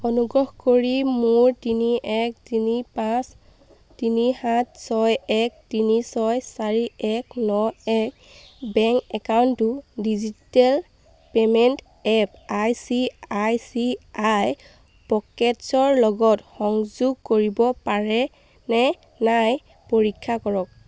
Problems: none marked